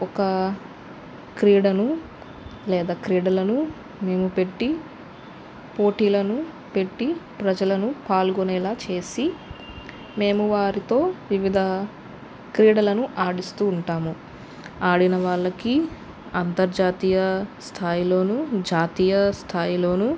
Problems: constant background noise